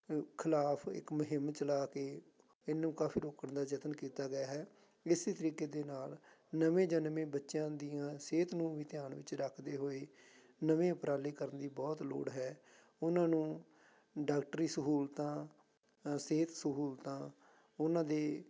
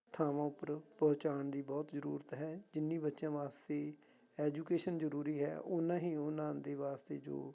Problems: background sounds at intervals